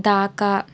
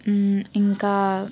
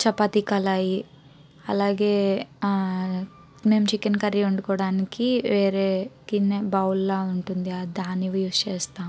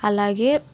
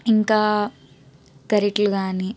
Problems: background sounds at intervals